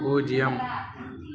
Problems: none marked